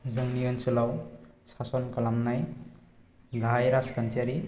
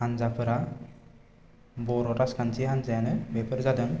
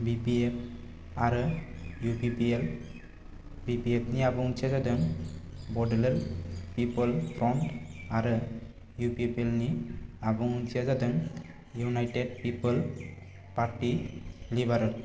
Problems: constant background noise